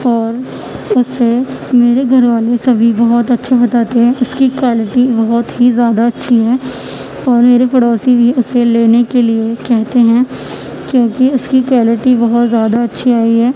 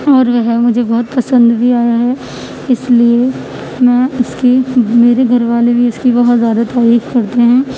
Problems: constant background noise